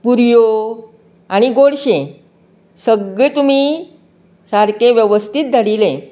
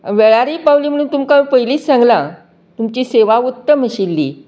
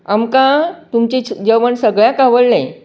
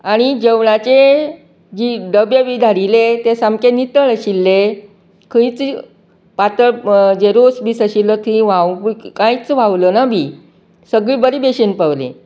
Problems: background sounds at intervals, background conversations at intervals